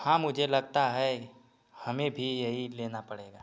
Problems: none marked